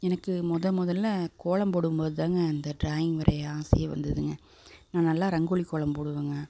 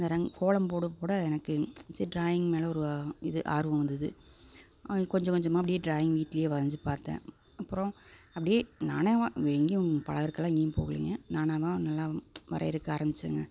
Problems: none marked